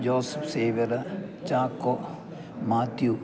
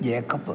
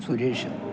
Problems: constant background noise